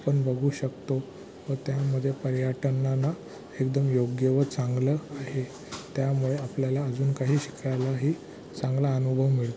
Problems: constant background noise, background conversations at intervals